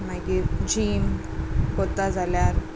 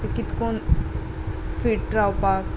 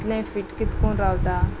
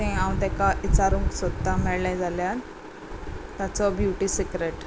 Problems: constant background noise